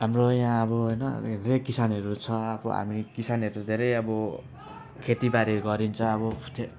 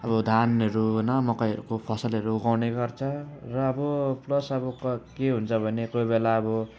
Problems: none marked